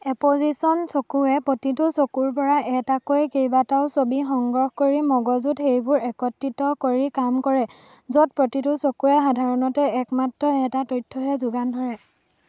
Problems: none marked